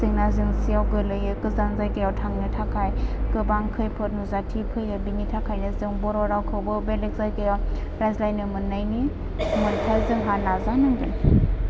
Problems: constant background noise